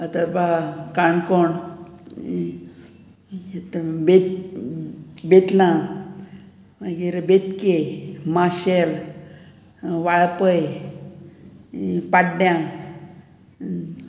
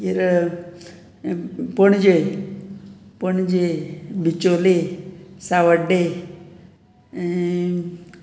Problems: background sounds at intervals, background conversations at intervals